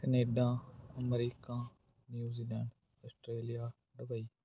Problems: background sounds at intervals